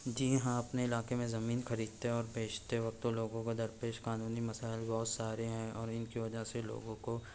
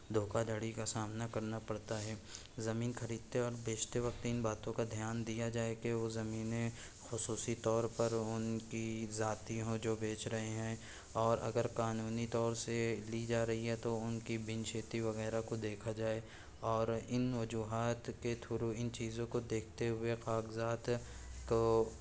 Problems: background sounds at intervals